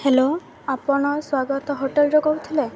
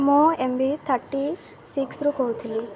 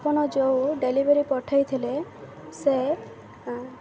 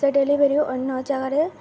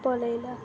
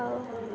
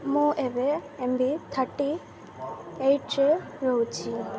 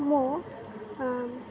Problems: constant background noise, continuous background conversations